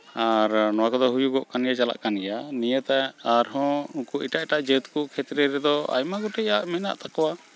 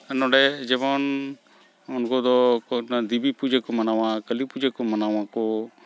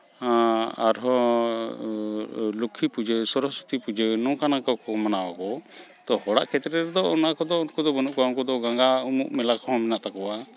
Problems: background sounds at intervals